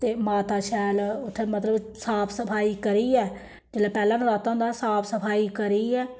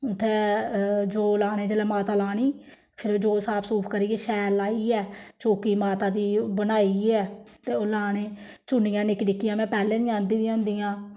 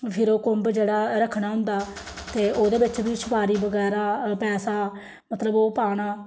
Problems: none marked